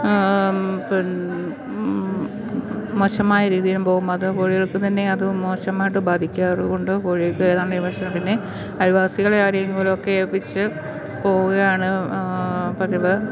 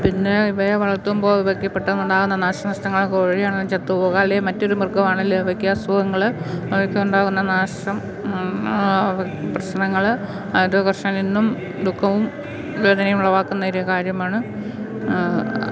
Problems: background sounds at intervals